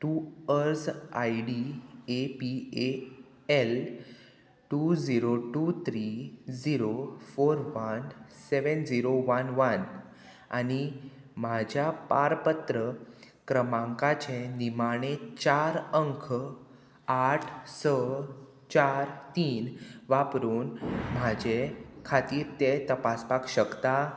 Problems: none marked